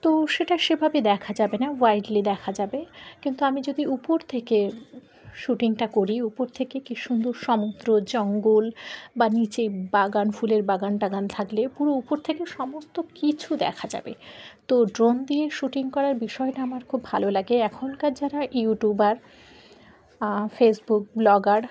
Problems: background sounds at intervals